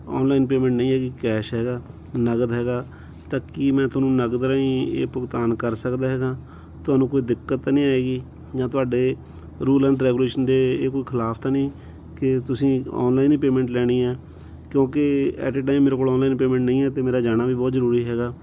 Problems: none marked